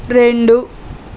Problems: constant background noise